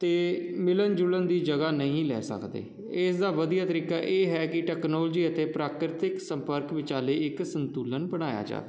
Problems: none marked